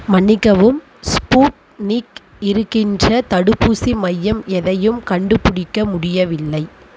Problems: background sounds at intervals